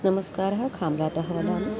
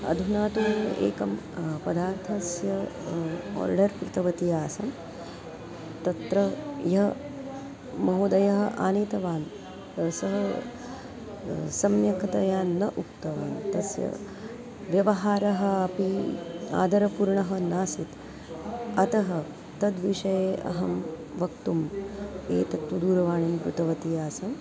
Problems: constant background noise, continuous background conversations